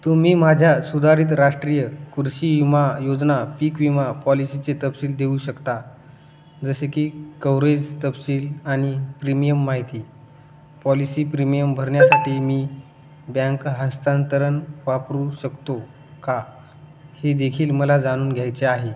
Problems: none marked